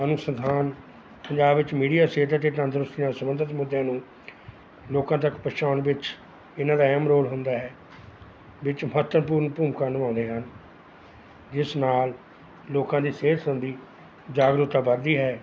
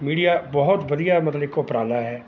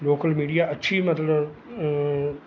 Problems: none marked